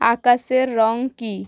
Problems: none marked